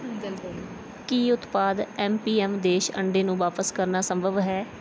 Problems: background conversations at intervals